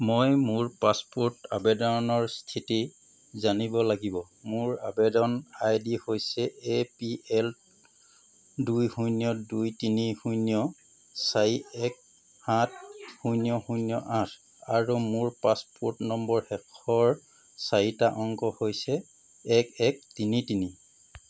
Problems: background sounds at intervals